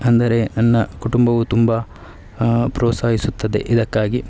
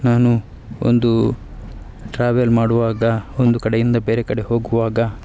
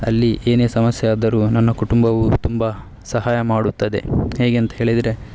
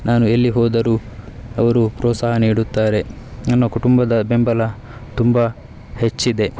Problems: none marked